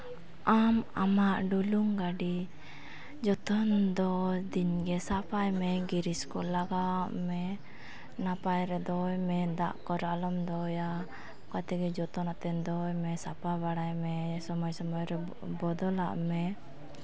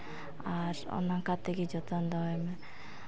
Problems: none marked